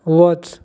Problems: constant background noise